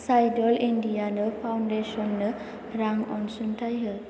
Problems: constant background noise